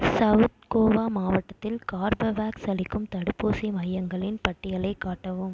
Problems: echo